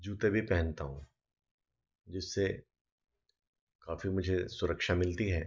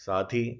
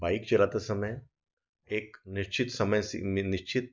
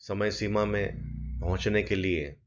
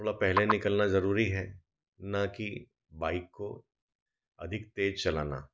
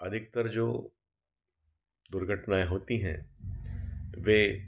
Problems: none marked